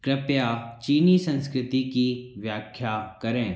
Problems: background sounds at intervals, echo